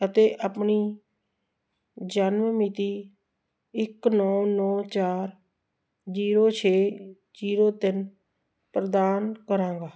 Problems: background sounds at intervals